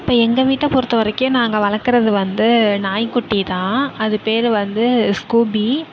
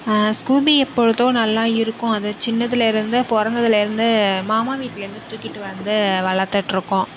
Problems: background sounds at intervals